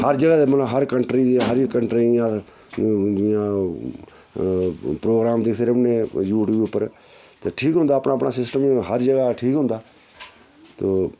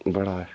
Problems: background sounds at intervals